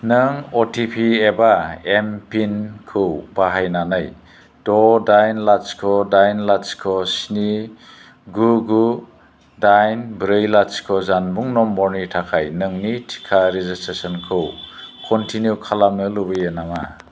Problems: none marked